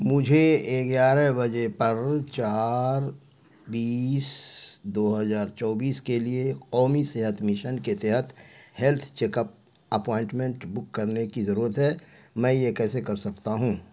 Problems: constant background noise